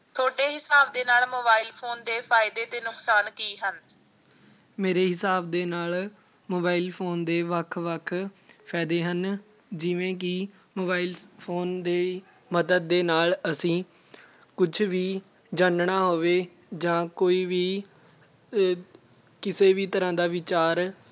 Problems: constant background noise, background conversations at intervals